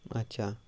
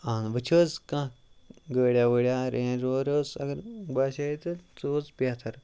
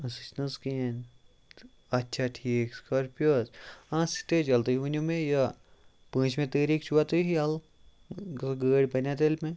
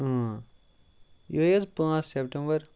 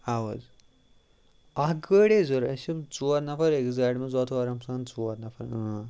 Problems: none marked